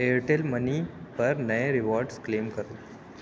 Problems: low volume